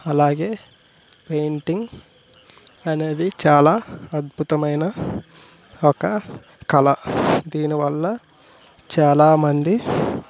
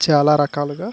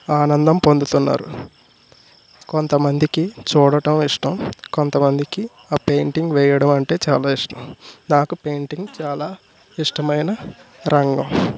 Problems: none marked